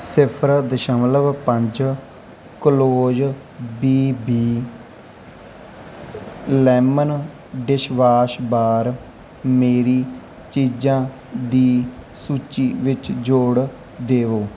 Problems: none marked